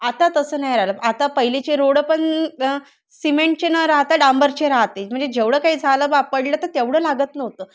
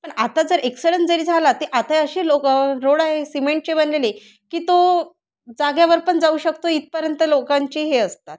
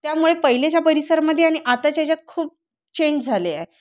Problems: constant background noise